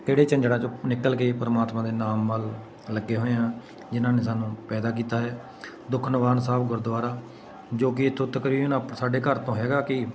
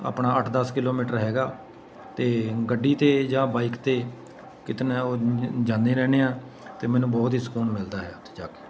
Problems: constant background noise, continuous background conversations